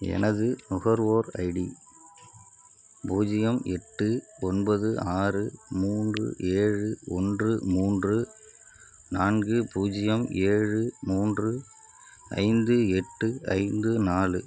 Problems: background sounds at intervals